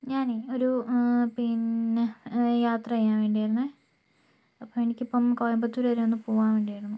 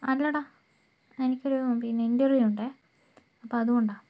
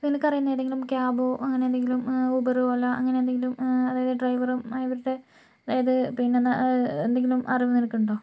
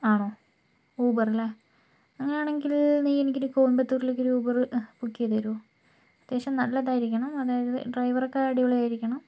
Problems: low volume